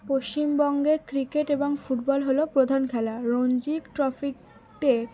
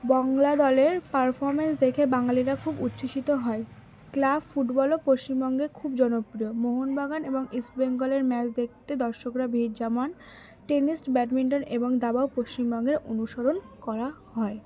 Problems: constant background noise, continuous background conversations